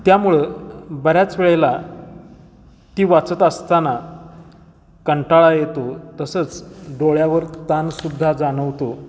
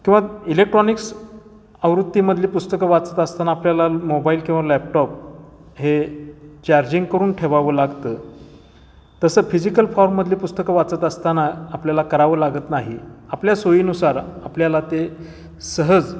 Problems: constant background noise, echo